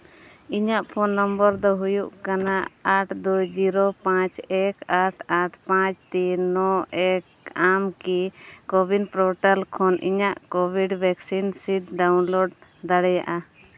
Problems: none marked